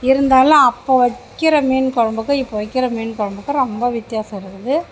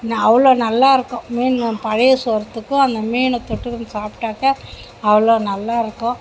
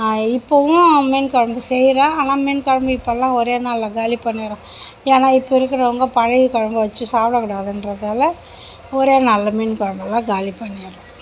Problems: background conversations at intervals